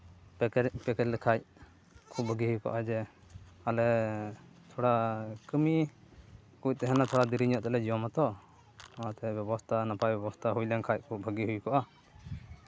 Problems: background sounds at intervals